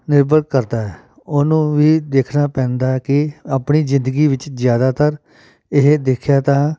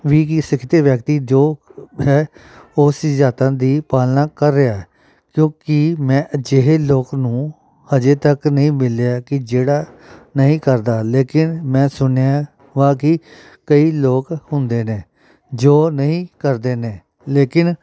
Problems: background sounds at intervals